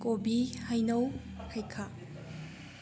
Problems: low volume